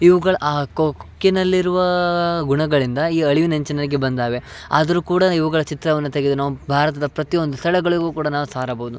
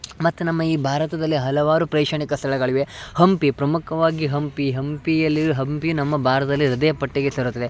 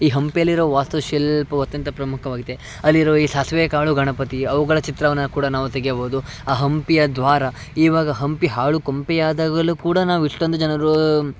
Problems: background sounds at intervals